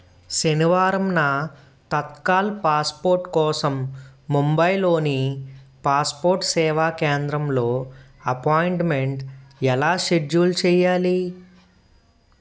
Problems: none marked